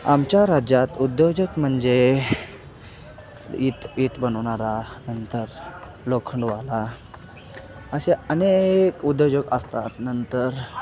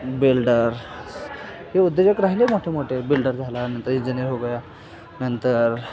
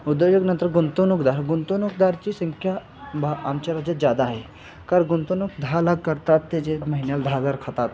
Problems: constant background noise